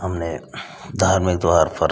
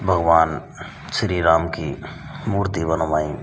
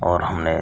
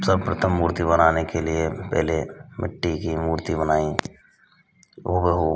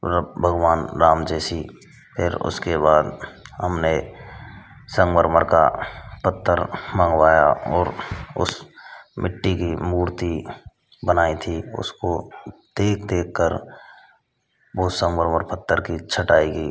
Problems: constant background noise